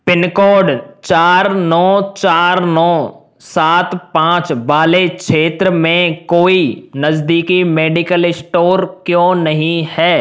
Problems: none marked